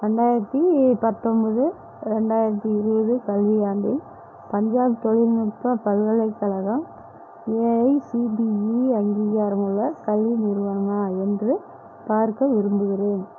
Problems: constant background noise